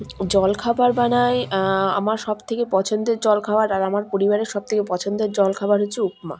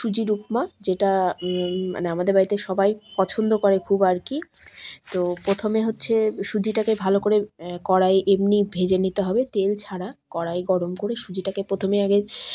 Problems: none marked